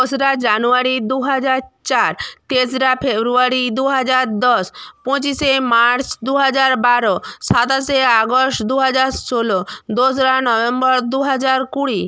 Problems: none marked